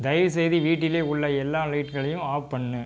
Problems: background sounds at intervals